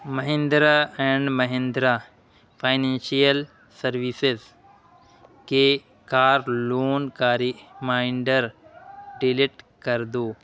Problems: constant background noise